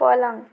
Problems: constant background noise